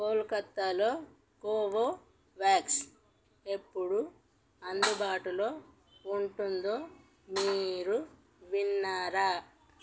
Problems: none marked